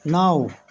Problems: constant background noise